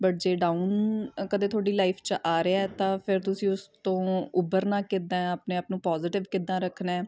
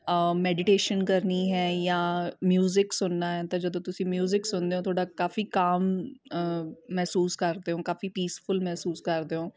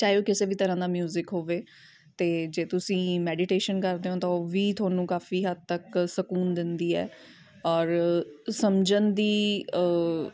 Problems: none marked